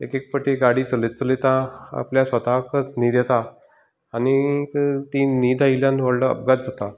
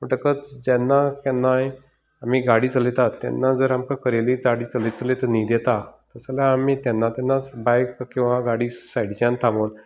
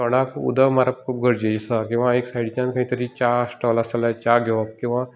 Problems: background sounds at intervals